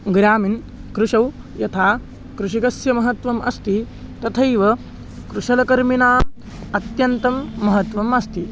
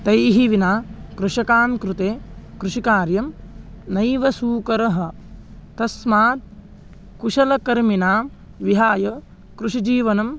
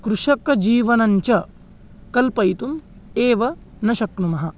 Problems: background sounds at intervals